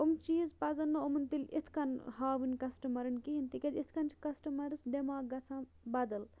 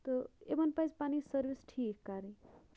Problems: none marked